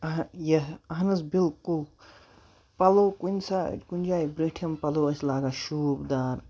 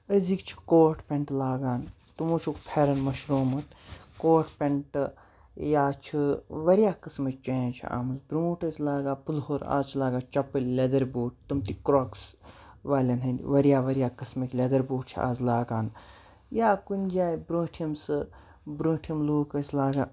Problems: background sounds at intervals